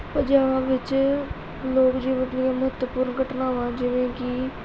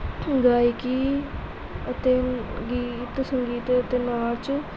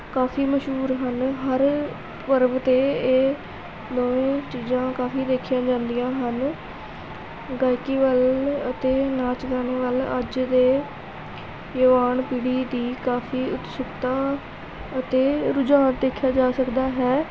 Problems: none marked